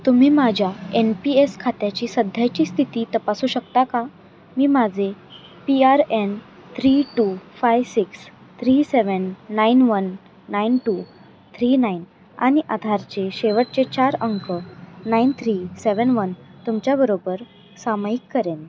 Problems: constant background noise